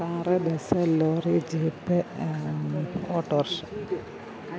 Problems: background sounds at intervals